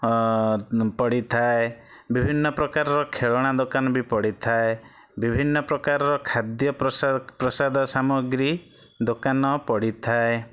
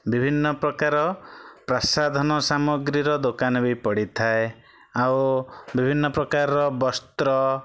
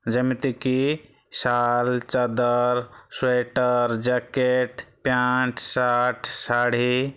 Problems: none marked